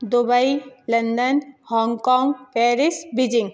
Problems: none marked